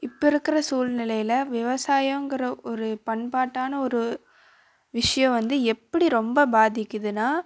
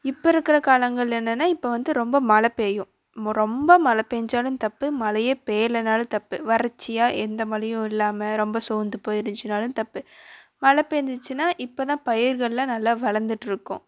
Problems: constant background noise